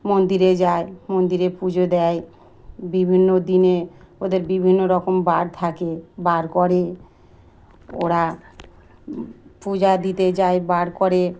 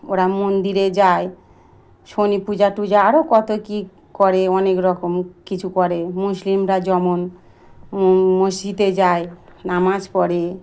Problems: constant background noise